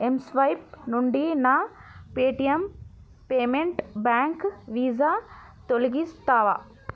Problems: background conversations at intervals